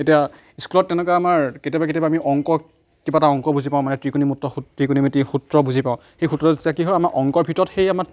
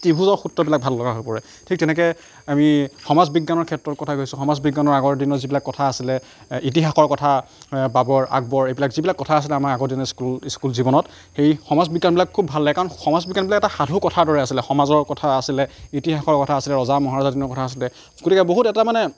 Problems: none marked